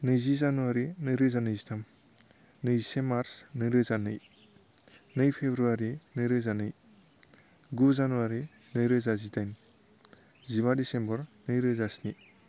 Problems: none marked